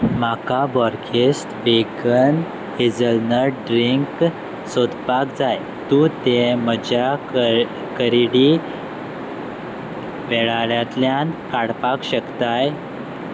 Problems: background sounds at intervals